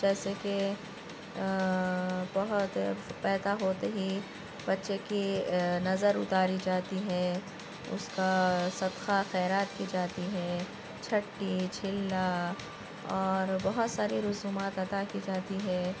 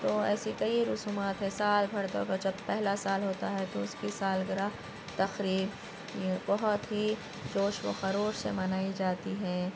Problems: constant background noise